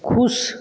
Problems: none marked